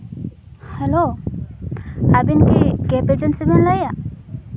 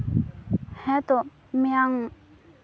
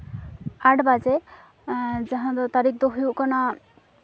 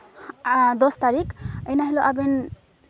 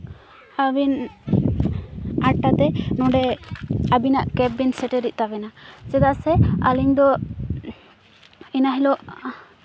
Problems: constant background noise, background conversations at intervals